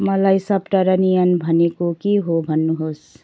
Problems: background sounds at intervals